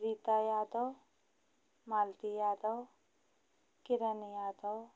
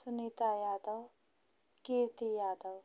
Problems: constant background noise